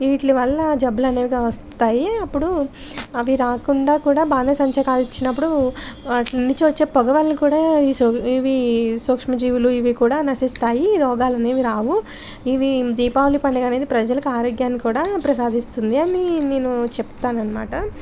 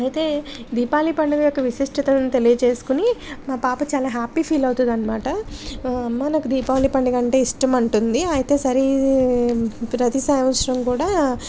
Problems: none marked